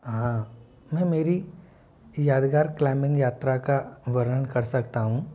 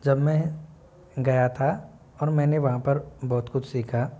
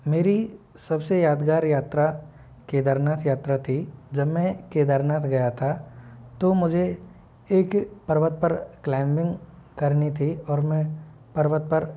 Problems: low volume